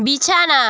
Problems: none marked